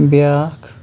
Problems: constant background noise